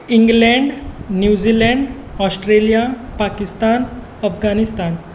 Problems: background sounds at intervals